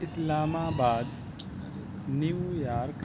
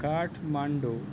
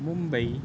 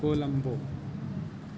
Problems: constant background noise